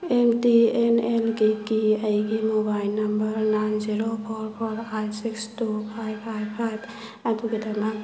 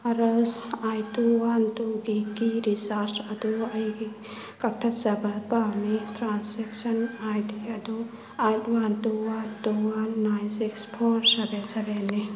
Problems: constant background noise